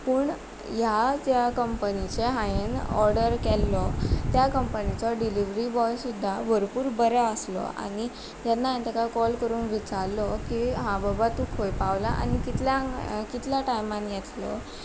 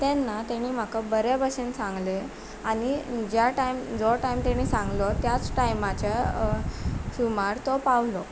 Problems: none marked